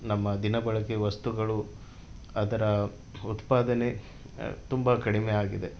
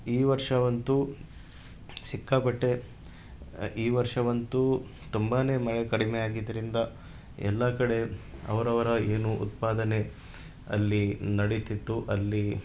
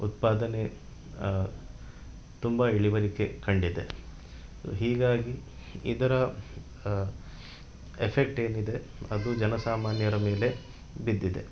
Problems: none marked